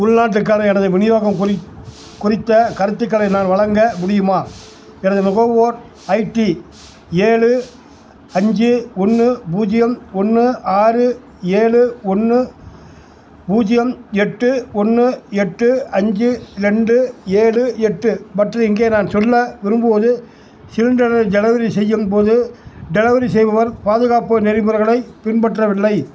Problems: constant background noise